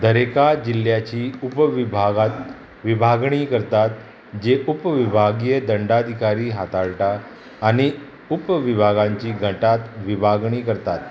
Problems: constant background noise